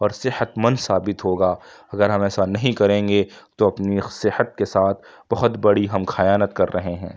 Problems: none marked